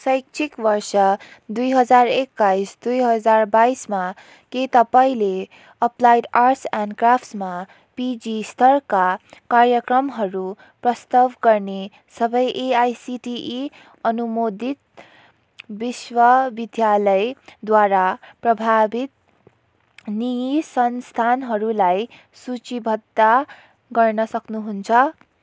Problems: background sounds at intervals